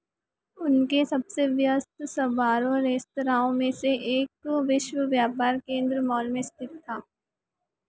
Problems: echo